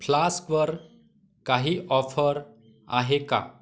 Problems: background conversations at intervals